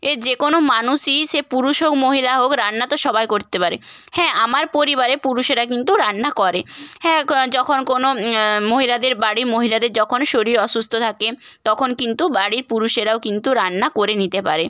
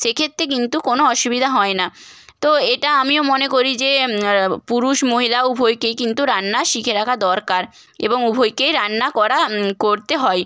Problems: background sounds at intervals